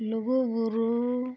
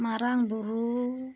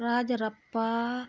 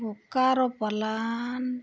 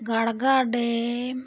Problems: background sounds at intervals